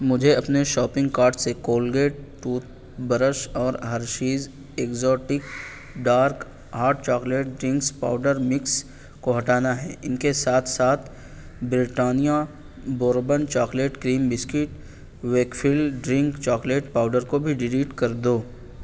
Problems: none marked